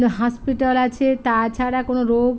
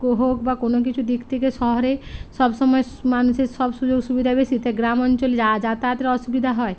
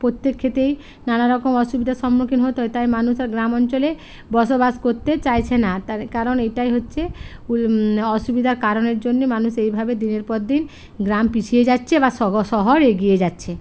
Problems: constant background noise